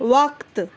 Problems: constant background noise